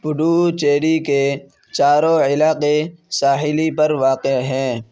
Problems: constant background noise